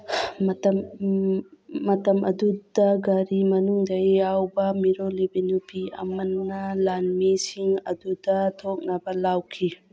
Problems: background sounds at intervals